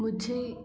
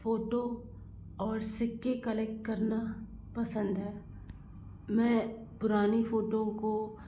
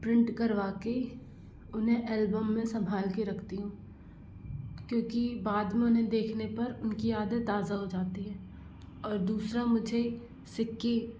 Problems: constant background noise